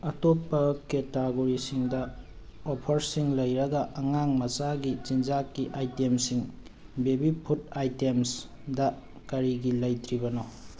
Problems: none marked